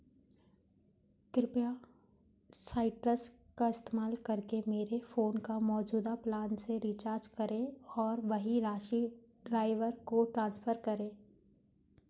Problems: background sounds at intervals